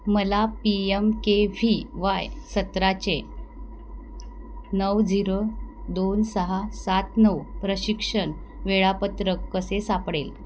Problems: background sounds at intervals